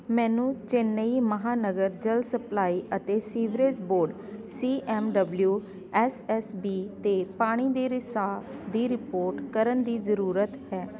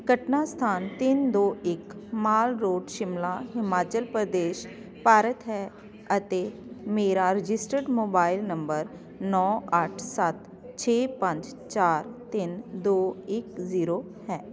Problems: constant background noise